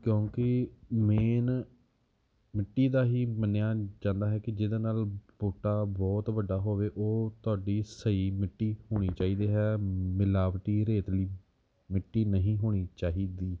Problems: background sounds at intervals